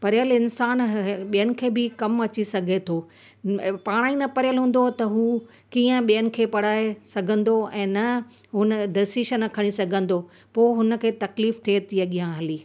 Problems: constant background noise